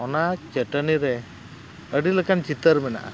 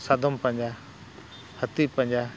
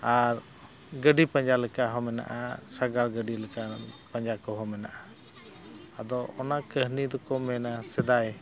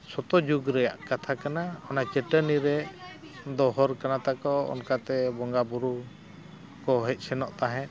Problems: constant background noise, background conversations at intervals